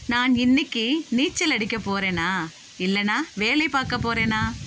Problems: constant background noise